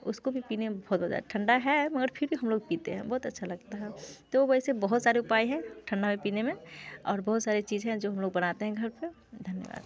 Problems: constant background noise